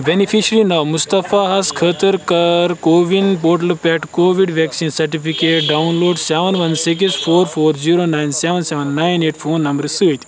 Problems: constant background noise